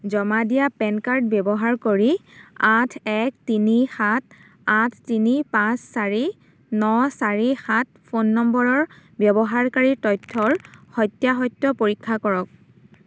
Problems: none marked